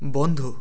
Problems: none marked